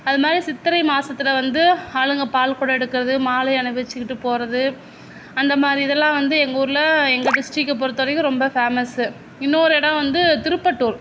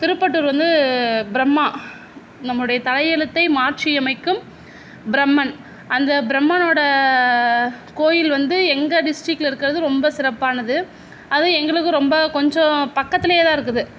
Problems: background sounds at intervals